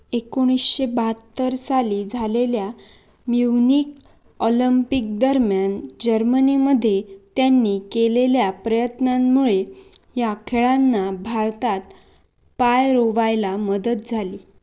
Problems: none marked